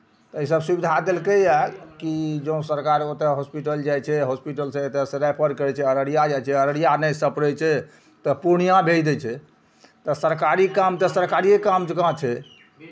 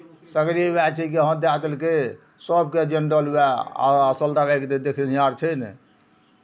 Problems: none marked